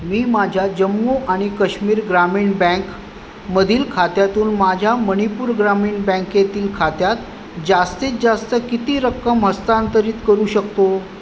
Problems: background sounds at intervals